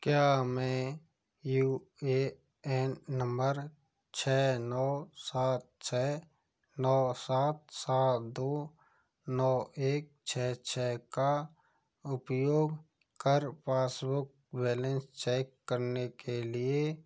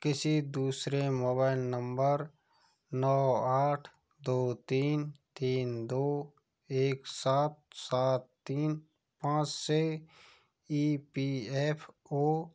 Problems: background sounds at intervals